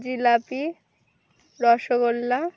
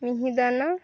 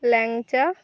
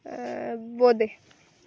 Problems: none marked